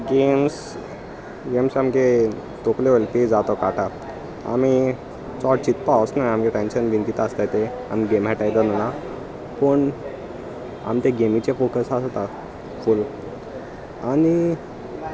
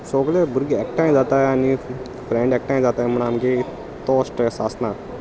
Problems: constant background noise, continuous background conversations